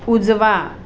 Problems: none marked